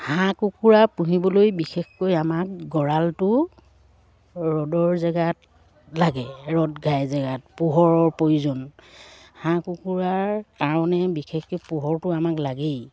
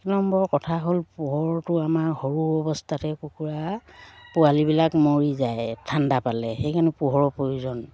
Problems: none marked